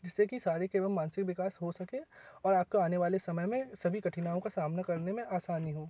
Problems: none marked